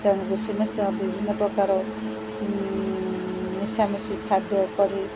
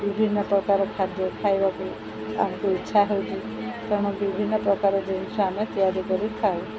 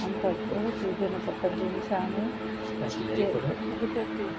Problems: none marked